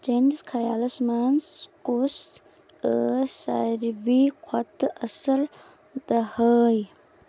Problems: none marked